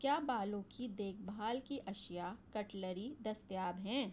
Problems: low volume